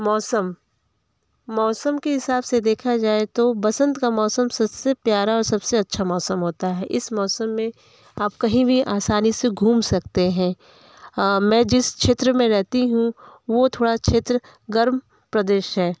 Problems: background conversations at intervals